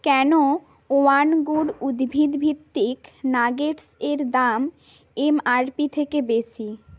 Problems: constant background noise